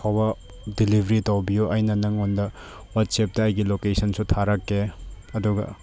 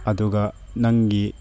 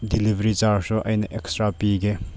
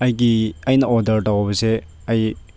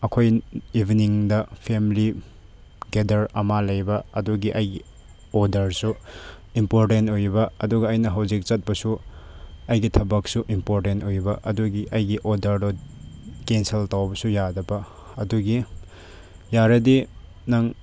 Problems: background sounds at intervals